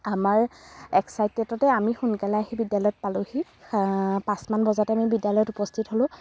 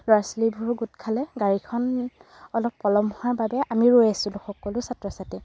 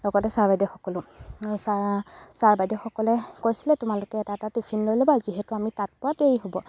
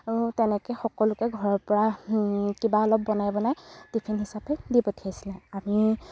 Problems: background sounds at intervals